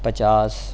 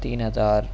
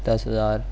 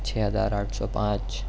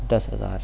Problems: none marked